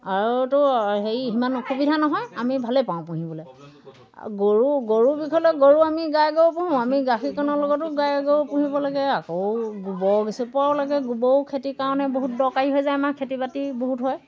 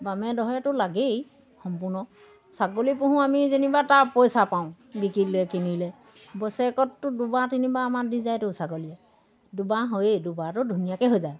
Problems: background sounds at intervals